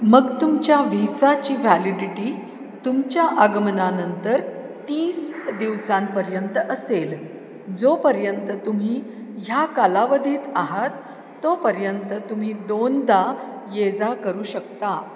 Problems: constant background noise, echo